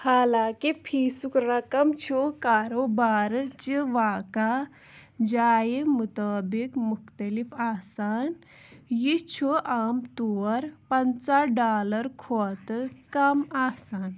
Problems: background sounds at intervals